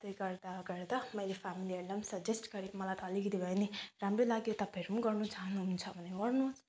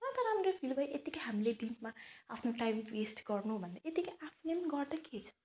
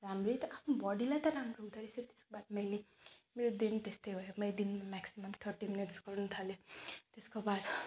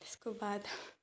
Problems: none marked